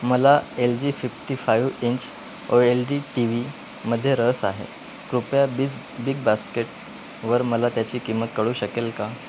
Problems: constant background noise